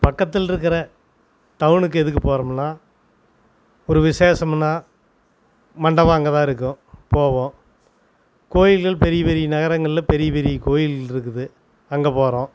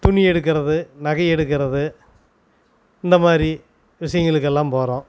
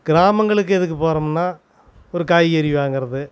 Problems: constant background noise